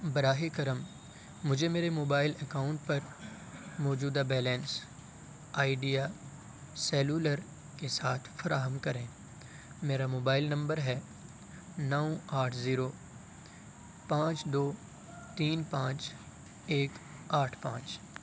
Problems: constant background noise